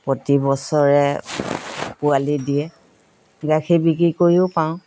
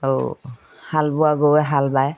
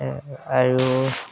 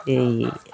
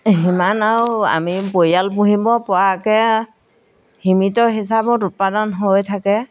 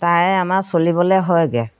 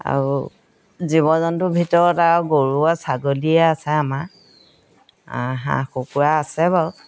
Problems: none marked